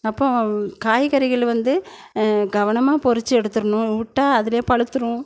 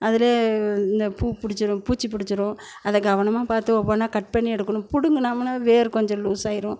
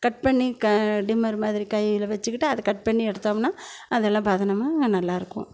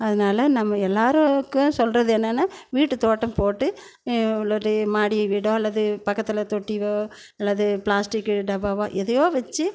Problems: none marked